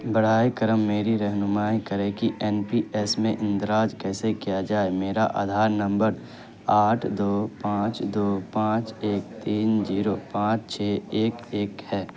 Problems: constant background noise